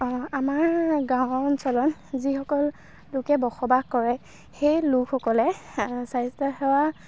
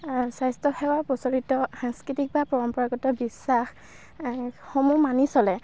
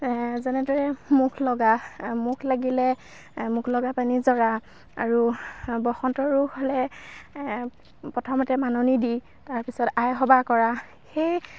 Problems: none marked